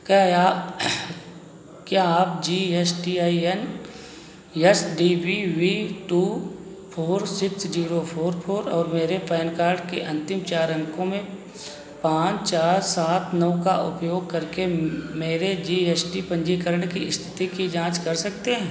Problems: none marked